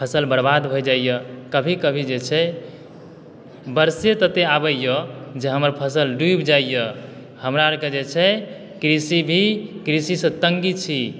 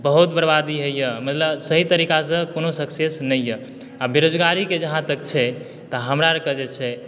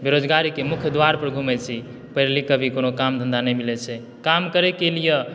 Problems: background sounds at intervals